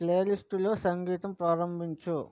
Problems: none marked